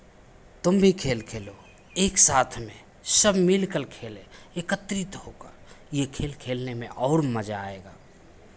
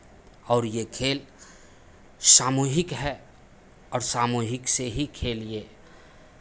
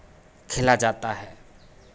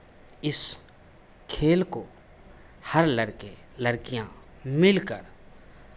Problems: constant background noise, background conversations at intervals